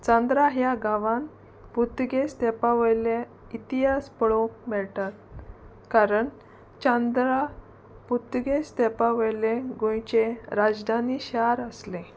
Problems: constant background noise